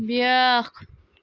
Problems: background sounds at intervals